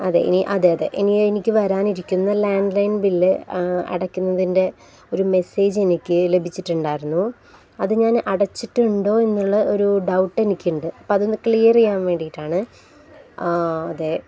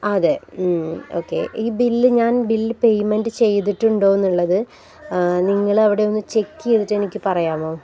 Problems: none marked